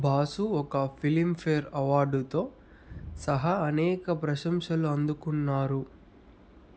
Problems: constant background noise